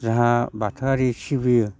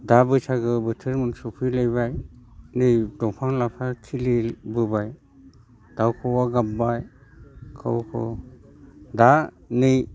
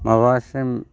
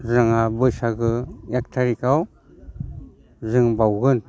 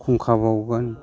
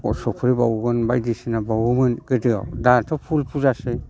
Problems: constant background noise